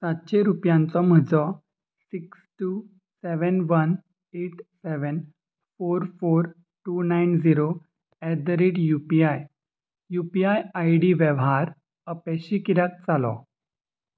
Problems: constant background noise